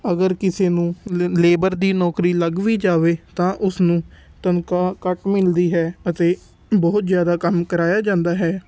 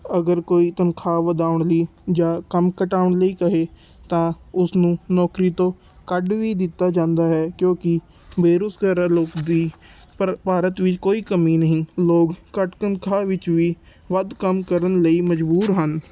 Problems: constant background noise